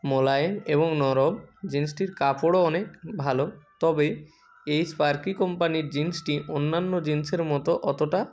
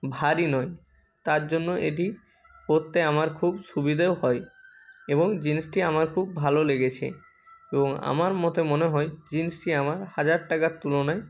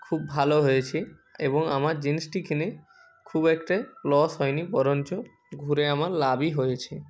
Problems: constant background noise, continuous background conversations